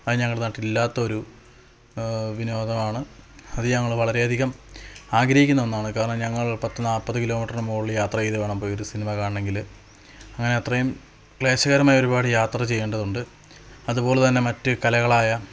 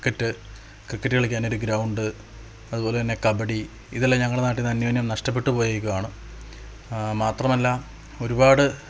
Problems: constant background noise, low volume